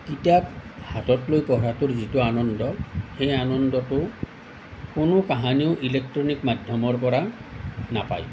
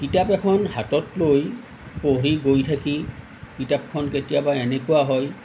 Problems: none marked